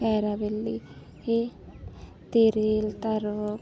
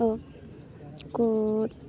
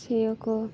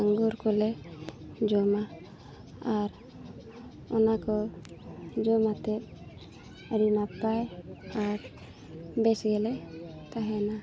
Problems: none marked